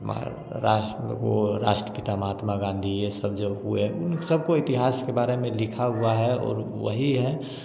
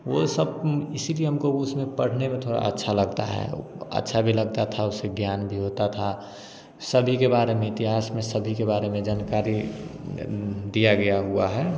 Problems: constant background noise